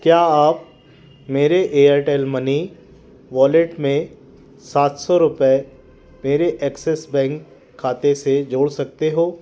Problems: none marked